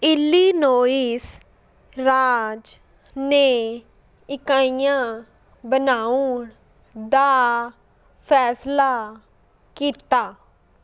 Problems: background sounds at intervals